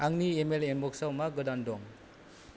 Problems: none marked